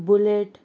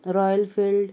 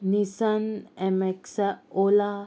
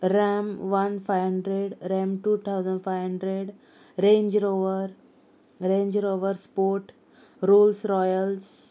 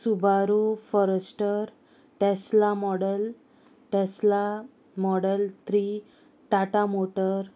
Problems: constant background noise